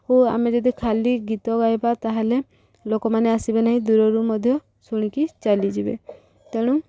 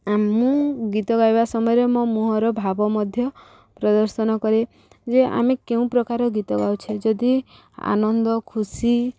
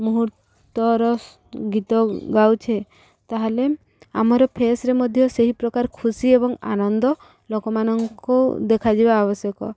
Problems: background sounds at intervals